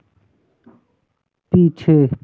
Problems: none marked